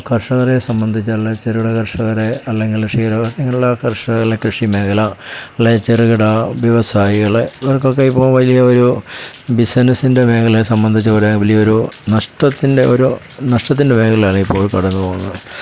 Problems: constant background noise